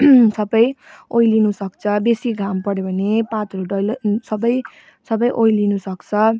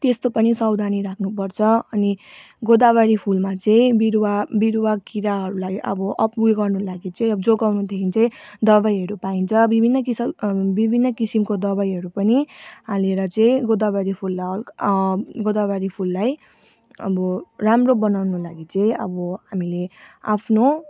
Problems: background sounds at intervals